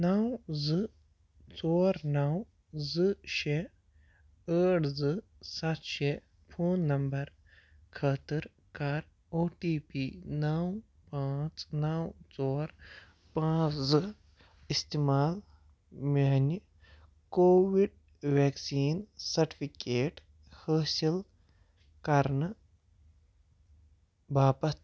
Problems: none marked